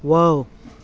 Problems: none marked